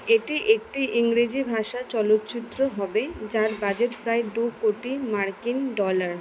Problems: none marked